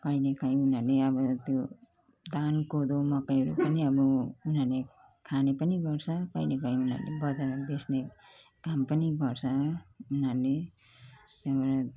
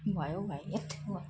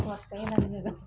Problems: background conversations at intervals